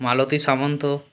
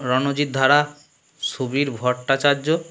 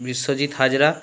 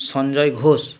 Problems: constant background noise